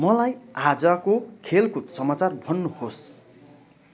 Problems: continuous background conversations